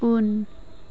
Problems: none marked